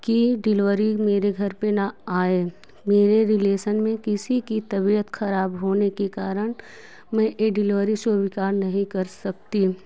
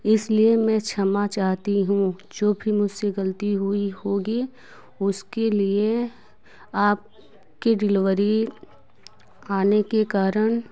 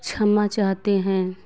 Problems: constant background noise